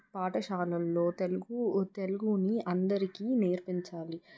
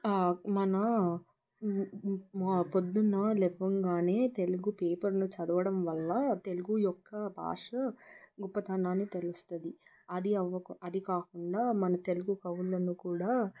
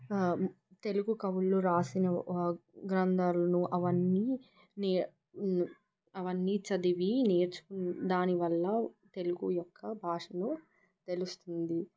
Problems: constant background noise